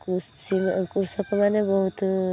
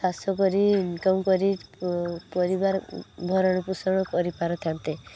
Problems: constant background noise